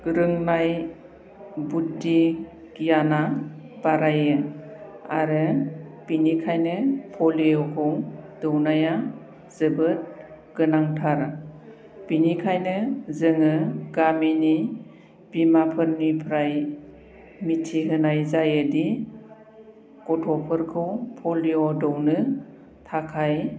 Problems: constant background noise